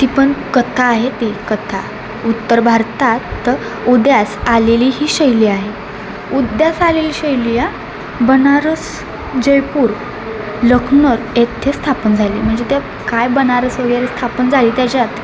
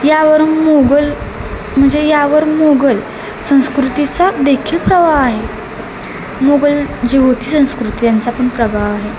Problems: constant background noise